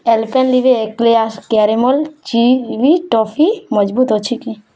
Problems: none marked